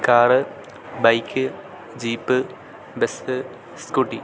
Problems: constant background noise